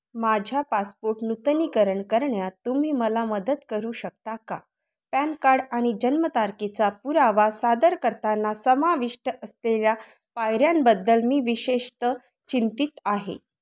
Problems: none marked